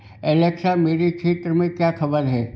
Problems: constant background noise